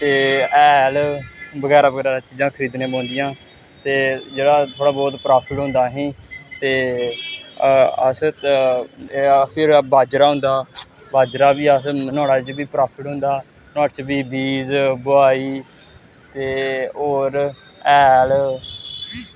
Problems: constant background noise